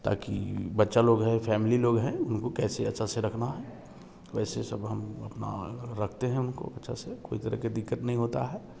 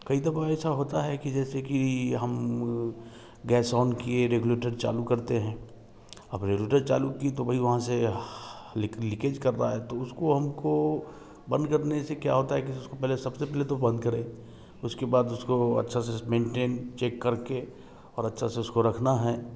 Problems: none marked